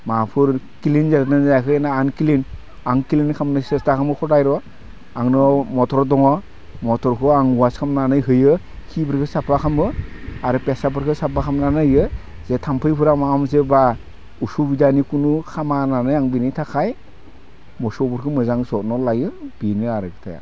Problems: none marked